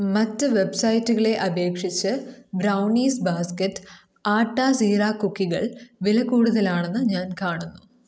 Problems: none marked